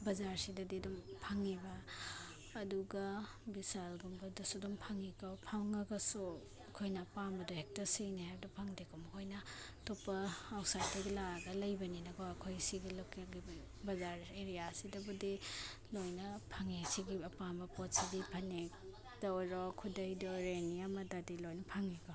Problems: none marked